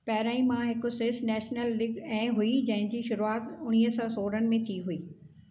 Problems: none marked